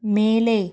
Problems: none marked